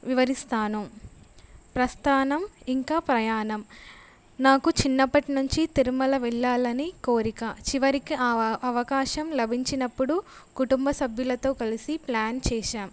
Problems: none marked